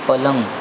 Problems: constant background noise